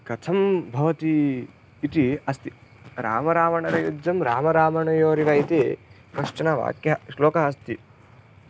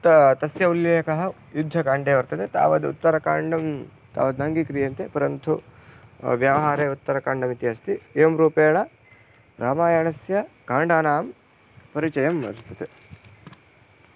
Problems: background sounds at intervals